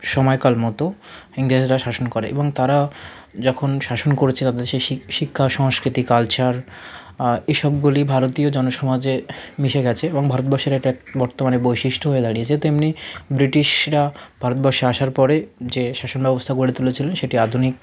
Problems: continuous background conversations